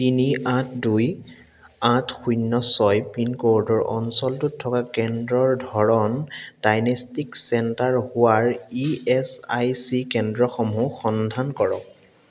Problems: background sounds at intervals, echo